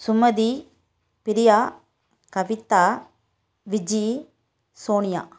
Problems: none marked